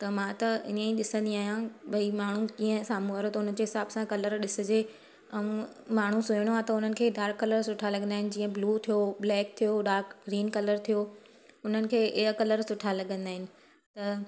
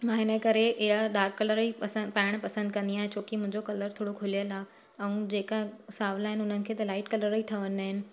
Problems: constant background noise